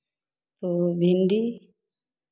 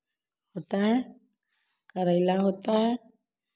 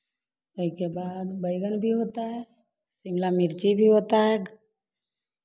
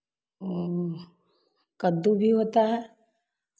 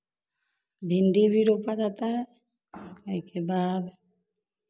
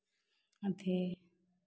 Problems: none marked